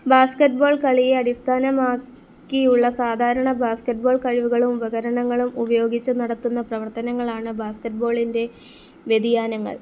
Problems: none marked